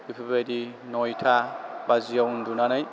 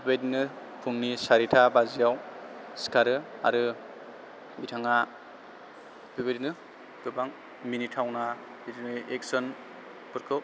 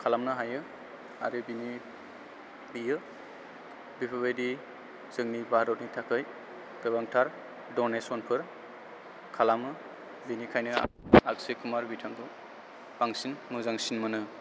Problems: background sounds at intervals